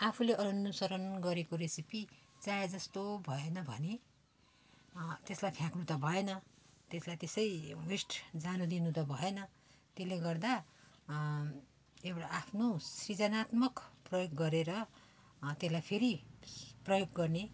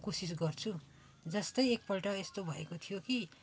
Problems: background sounds at intervals